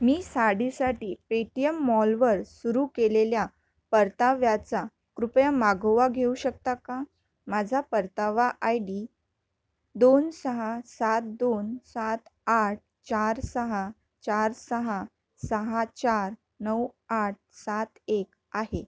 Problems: none marked